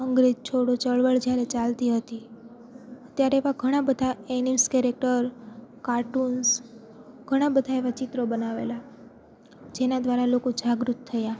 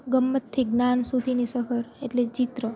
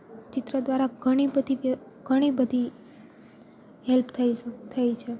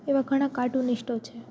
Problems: none marked